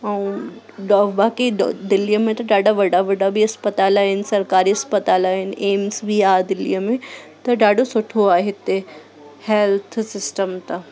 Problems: constant background noise, echo